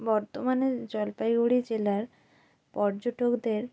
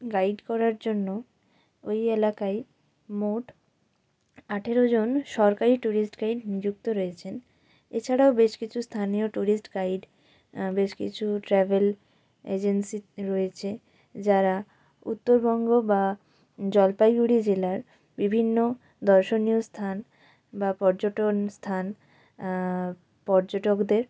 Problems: constant background noise